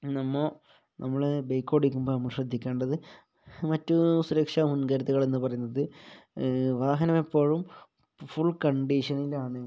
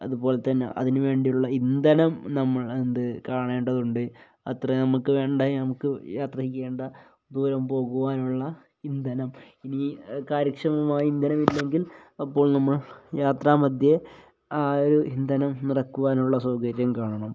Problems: low volume